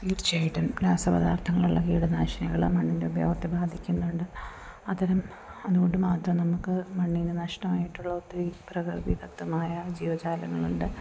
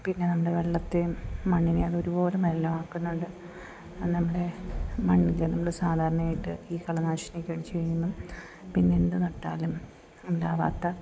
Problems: none marked